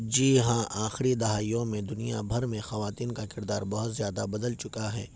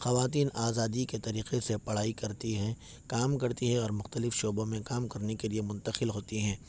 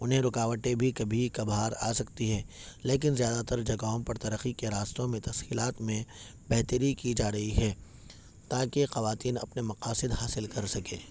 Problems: none marked